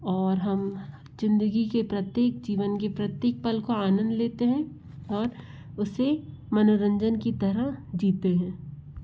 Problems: background sounds at intervals